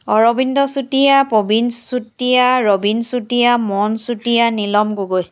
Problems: background sounds at intervals